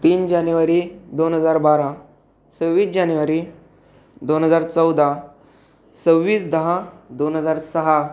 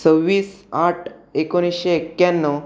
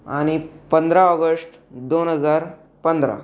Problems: none marked